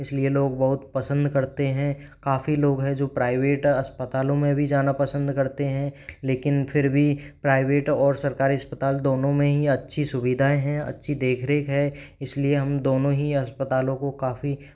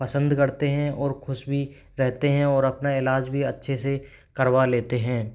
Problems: background sounds at intervals